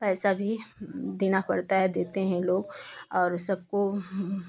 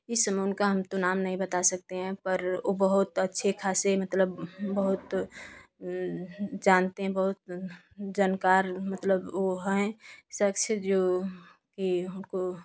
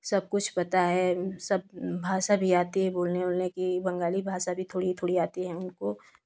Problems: constant background noise